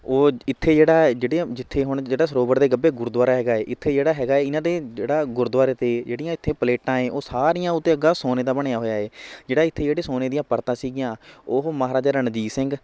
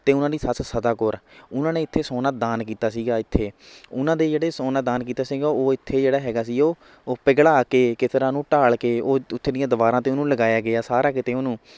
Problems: none marked